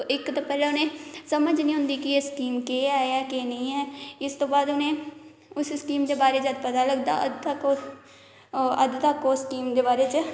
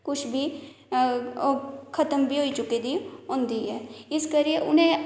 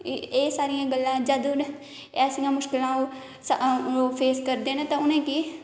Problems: none marked